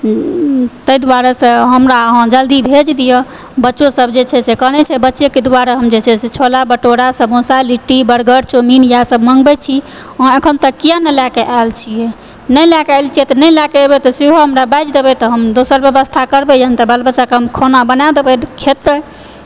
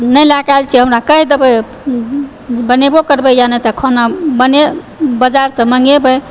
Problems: background sounds at intervals